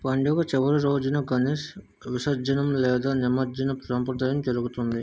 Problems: none marked